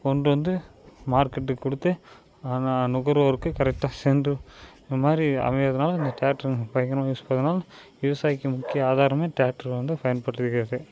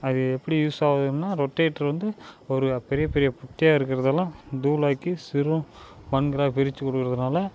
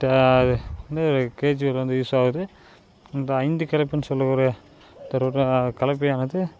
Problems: constant background noise